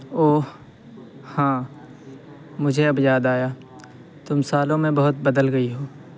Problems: constant background noise